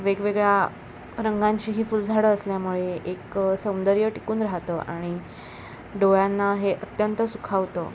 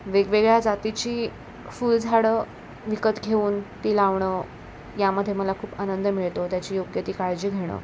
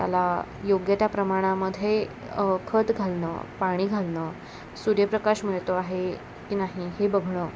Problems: none marked